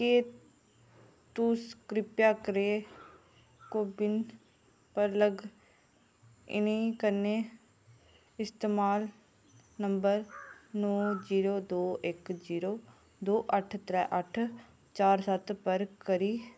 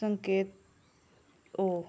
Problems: none marked